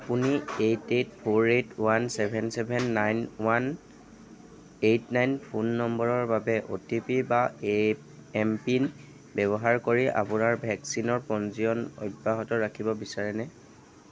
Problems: background sounds at intervals, background conversations at intervals